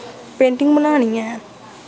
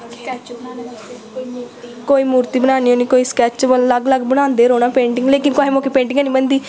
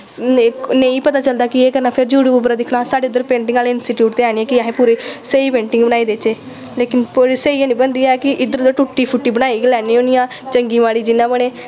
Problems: constant background noise